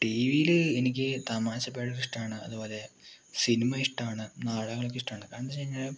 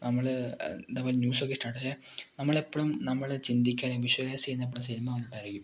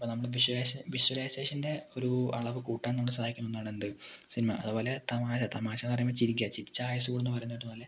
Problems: low volume